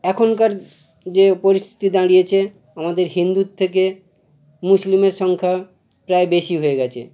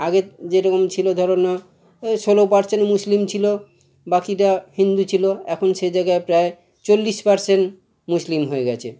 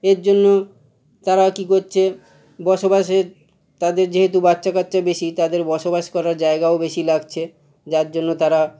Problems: constant background noise, background conversations at intervals